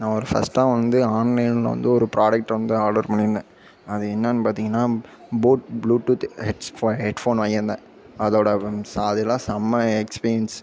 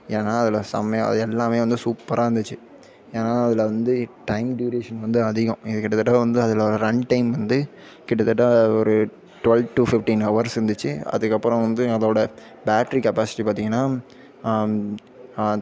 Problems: background sounds at intervals, background conversations at intervals